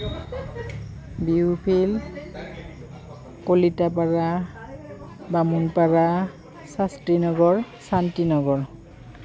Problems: none marked